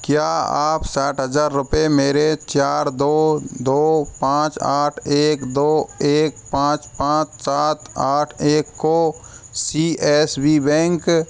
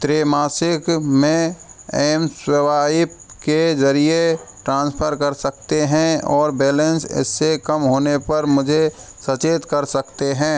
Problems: constant background noise